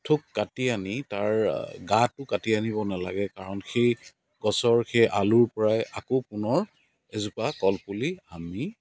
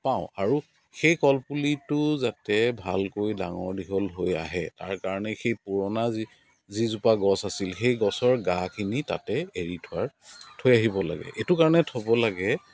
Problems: constant background noise, background conversations at intervals